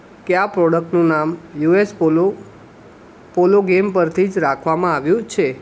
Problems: background sounds at intervals